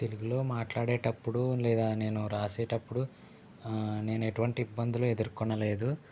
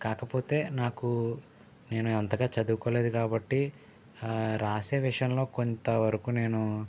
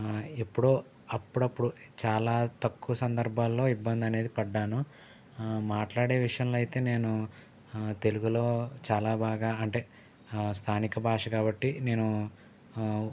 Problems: constant background noise